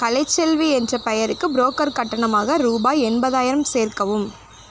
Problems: none marked